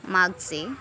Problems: none marked